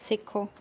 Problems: none marked